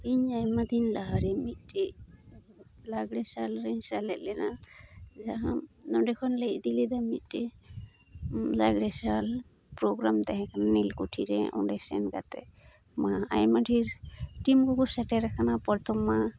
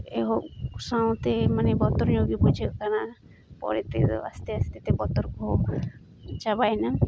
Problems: constant background noise